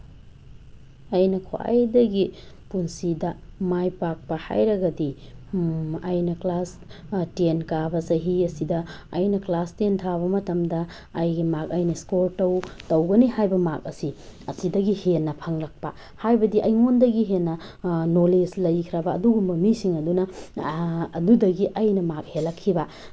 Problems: background sounds at intervals, background conversations at intervals